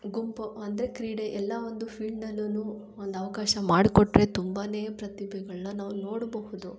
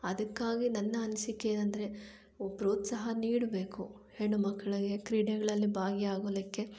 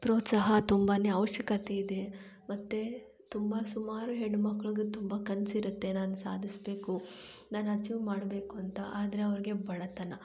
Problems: low volume